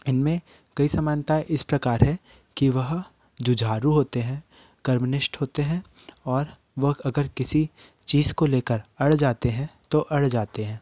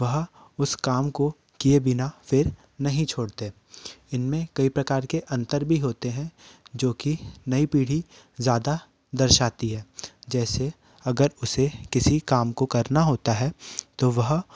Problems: none marked